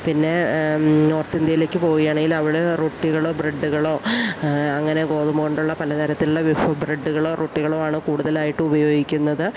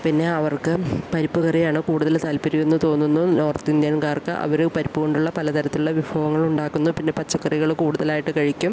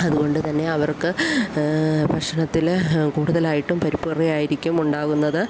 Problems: background sounds at intervals